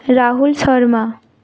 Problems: none marked